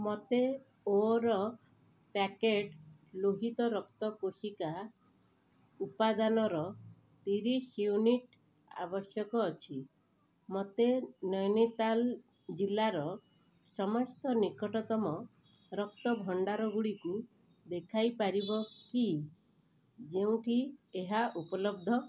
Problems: background sounds at intervals, low volume